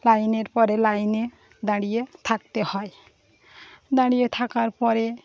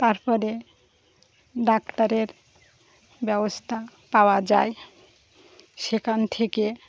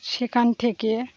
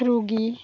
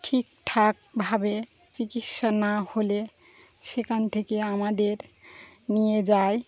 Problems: constant background noise, continuous background conversations